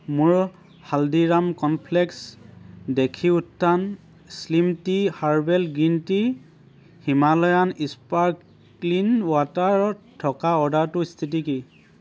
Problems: constant background noise